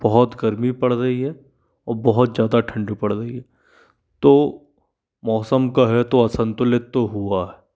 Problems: none marked